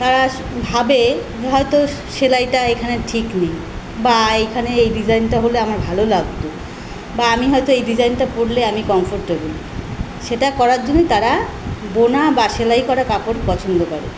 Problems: constant background noise